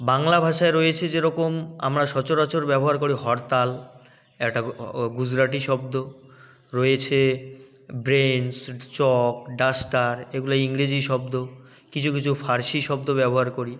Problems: none marked